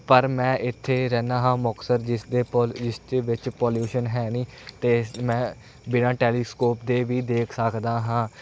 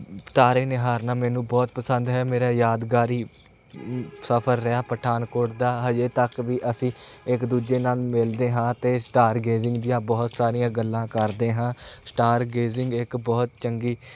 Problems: none marked